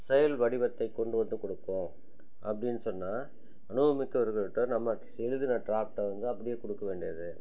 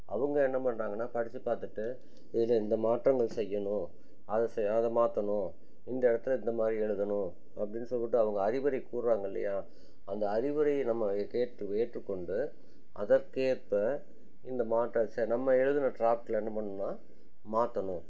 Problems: none marked